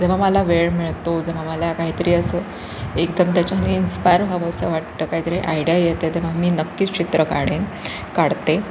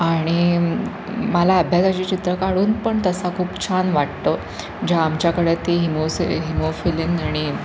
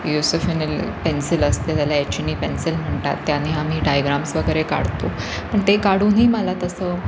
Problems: constant background noise